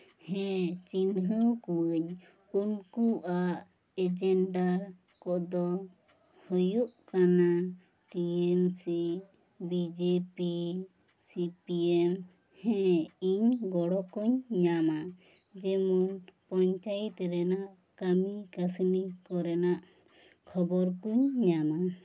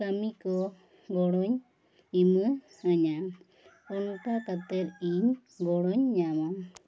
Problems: low volume